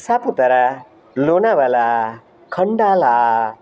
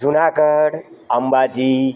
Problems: none marked